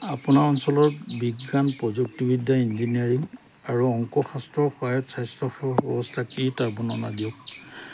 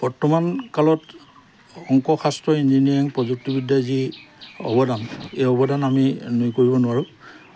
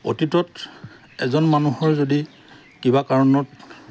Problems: background conversations at intervals